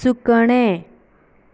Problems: background sounds at intervals